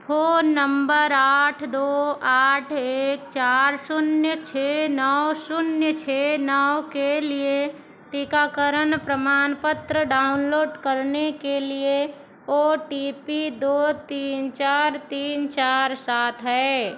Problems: background sounds at intervals